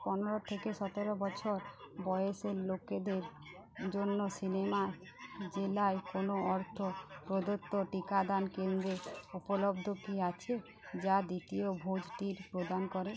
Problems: constant background noise, low volume